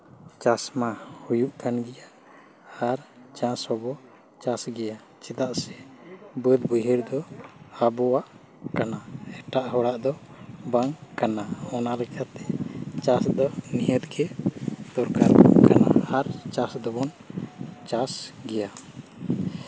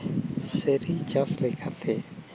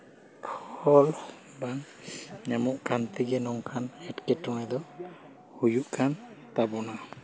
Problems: none marked